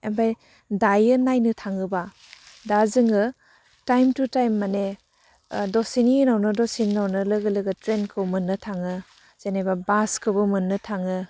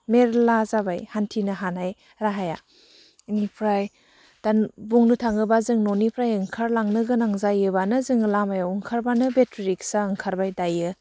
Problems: low volume